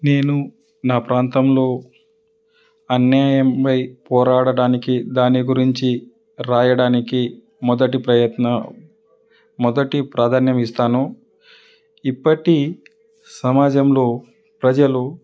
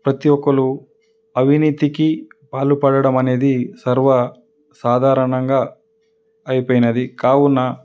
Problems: none marked